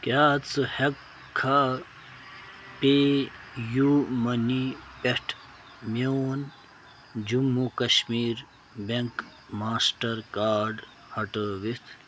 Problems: constant background noise